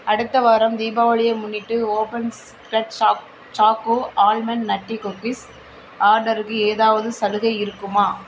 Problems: constant background noise